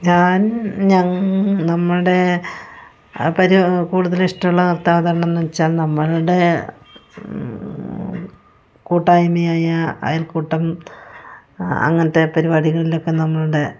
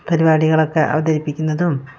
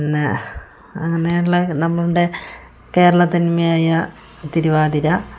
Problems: none marked